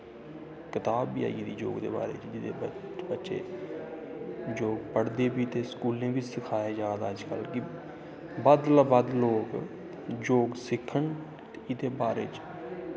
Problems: constant background noise, echo